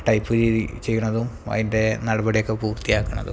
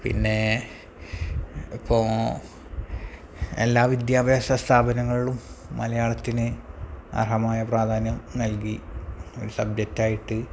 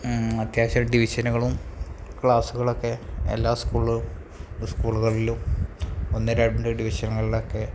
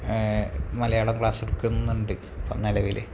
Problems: low volume